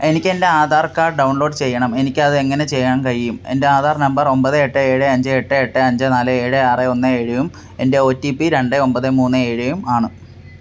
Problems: none marked